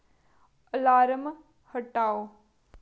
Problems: low volume